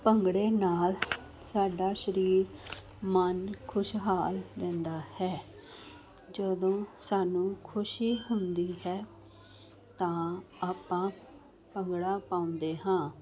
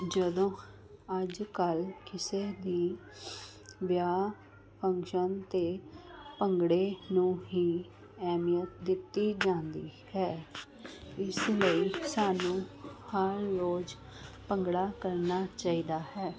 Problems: constant background noise